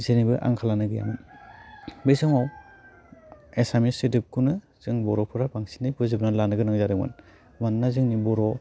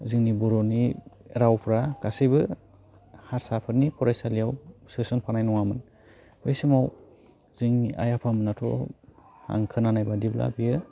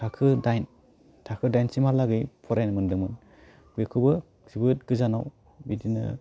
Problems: low volume